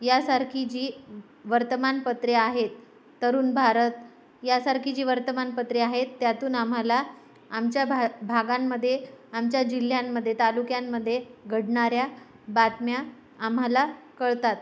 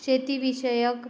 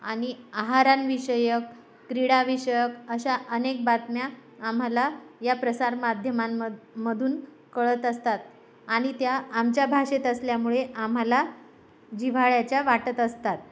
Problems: none marked